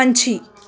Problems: none marked